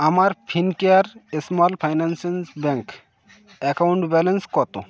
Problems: none marked